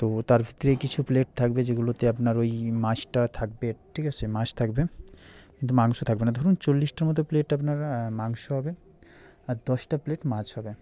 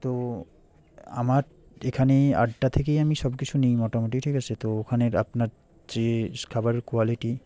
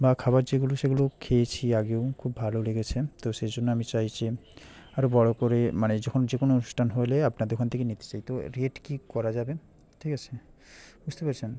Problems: background conversations at intervals